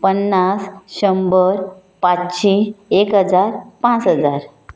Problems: none marked